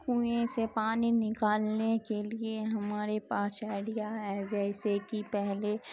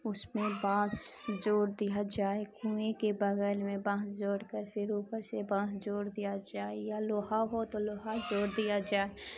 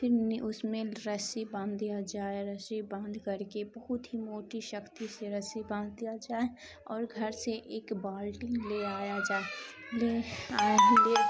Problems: constant background noise